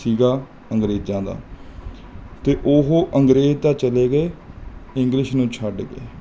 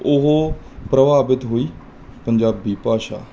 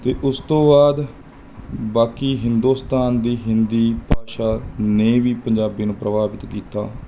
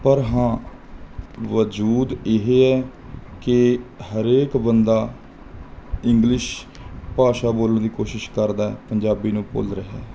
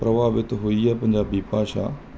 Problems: background sounds at intervals